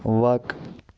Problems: background sounds at intervals